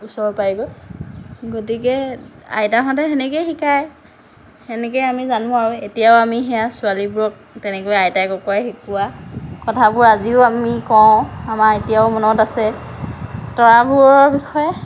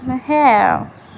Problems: none marked